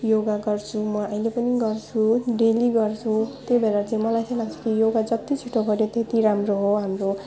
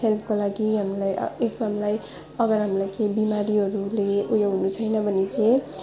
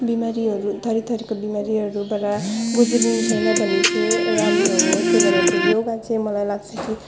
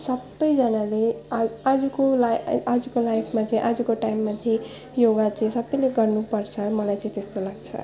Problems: background sounds at intervals